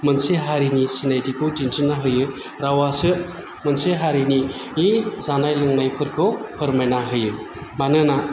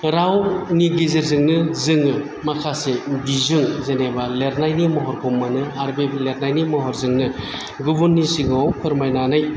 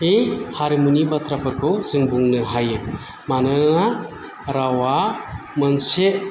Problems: none marked